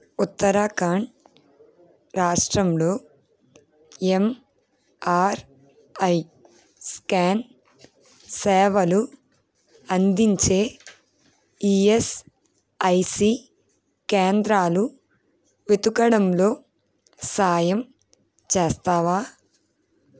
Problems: constant background noise, background conversations at intervals